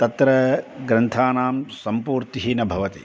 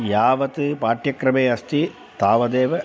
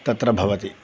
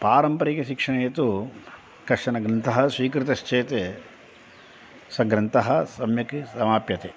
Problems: none marked